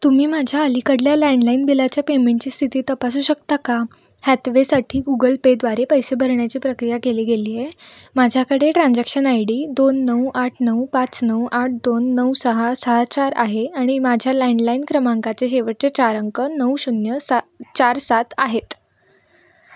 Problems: background sounds at intervals